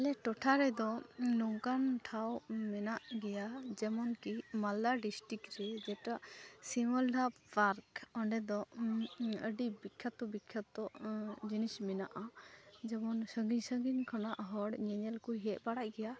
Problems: constant background noise, continuous background conversations